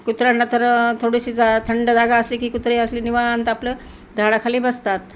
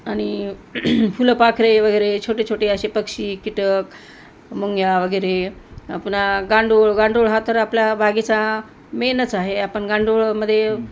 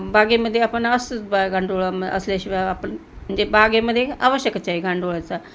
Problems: none marked